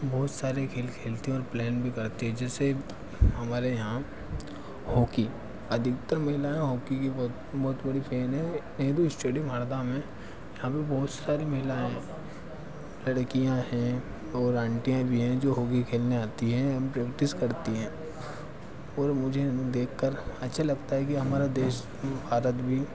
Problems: constant background noise, background conversations at intervals